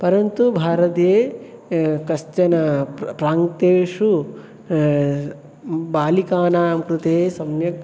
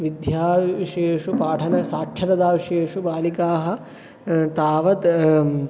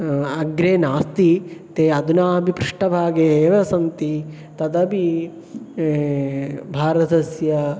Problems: background sounds at intervals